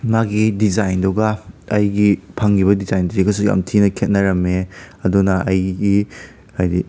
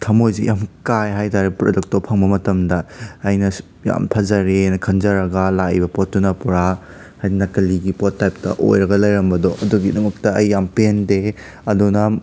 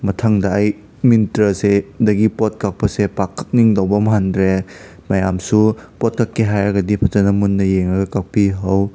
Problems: background sounds at intervals